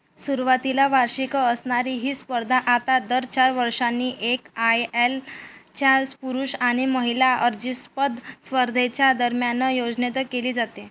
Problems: background sounds at intervals